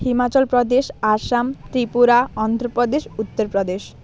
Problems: constant background noise